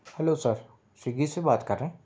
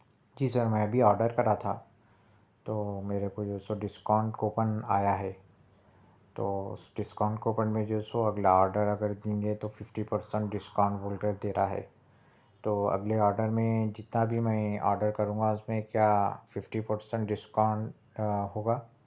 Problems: background sounds at intervals, low volume